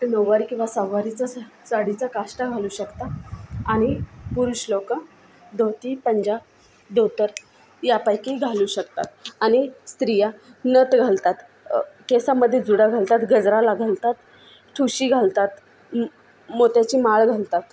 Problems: constant background noise, continuous background conversations